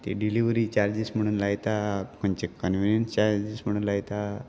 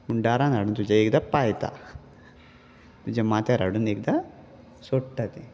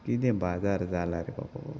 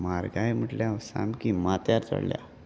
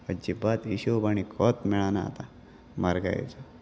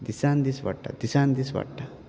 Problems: constant background noise